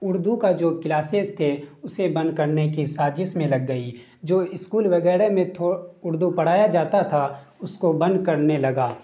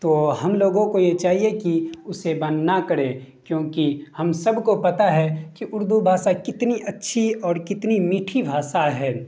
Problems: none marked